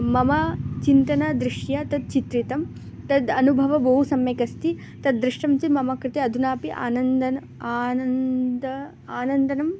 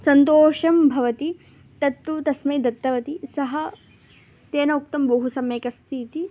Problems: constant background noise